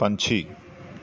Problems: none marked